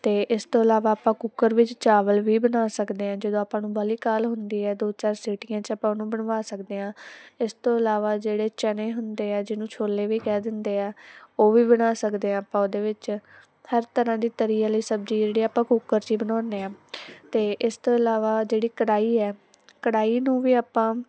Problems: none marked